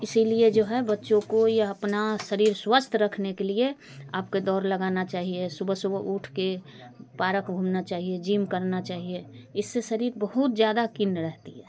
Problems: constant background noise, background conversations at intervals